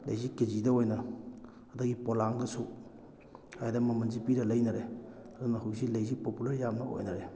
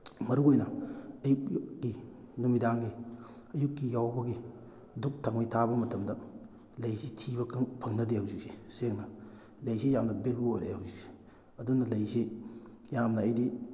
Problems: background sounds at intervals